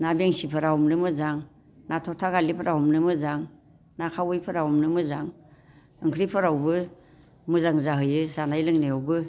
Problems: constant background noise